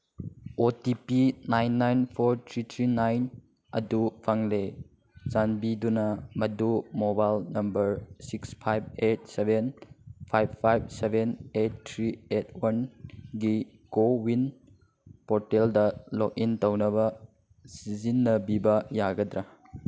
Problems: none marked